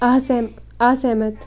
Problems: constant background noise